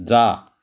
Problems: background sounds at intervals